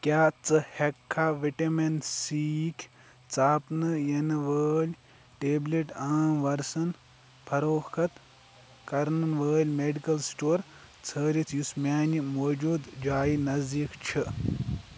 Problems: constant background noise